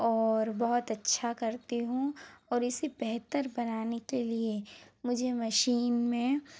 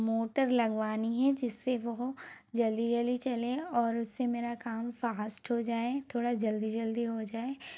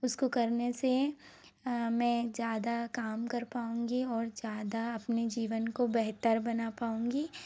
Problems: none marked